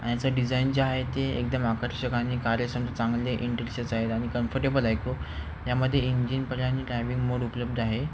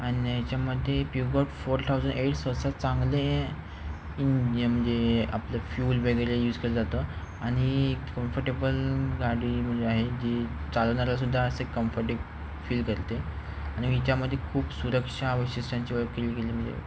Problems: constant background noise